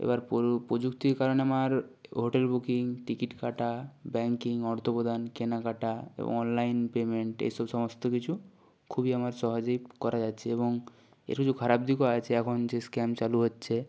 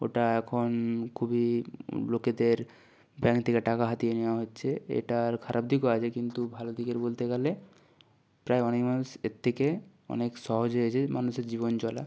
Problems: background sounds at intervals